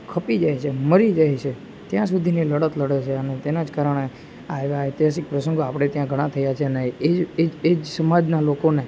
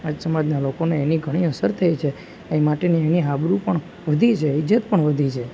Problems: none marked